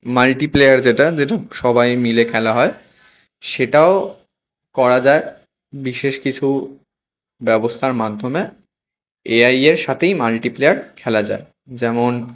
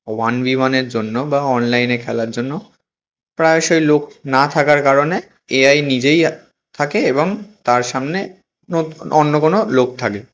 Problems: constant background noise